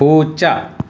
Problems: constant background noise